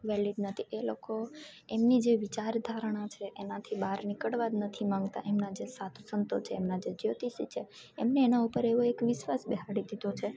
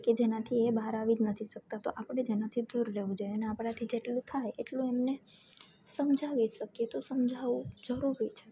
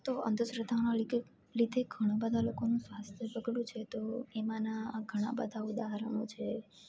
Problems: none marked